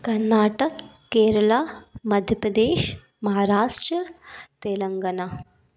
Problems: background sounds at intervals